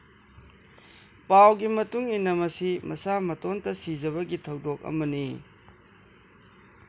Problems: constant background noise